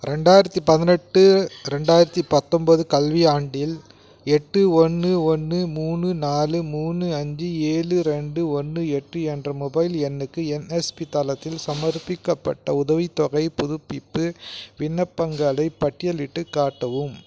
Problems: none marked